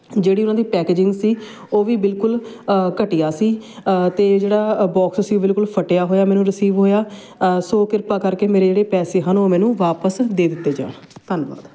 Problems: constant background noise